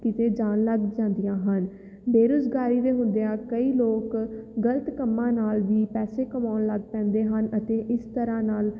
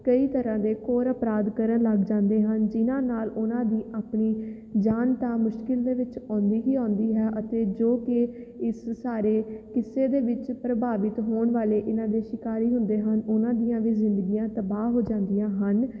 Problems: none marked